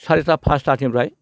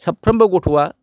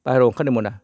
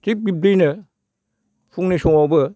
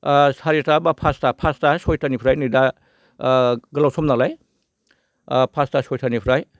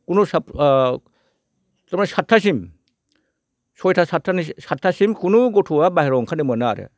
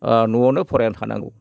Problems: none marked